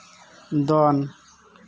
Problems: none marked